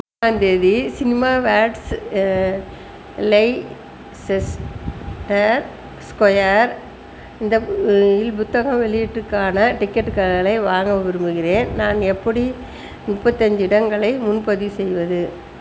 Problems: constant background noise